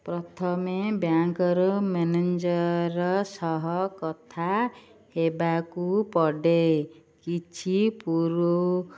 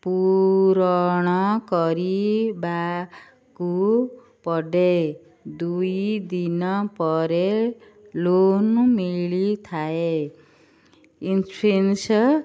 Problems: none marked